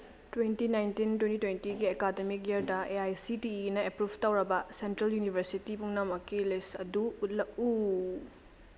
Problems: constant background noise